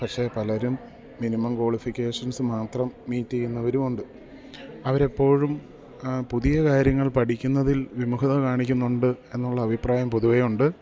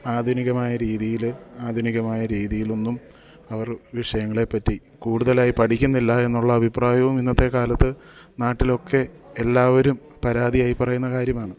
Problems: none marked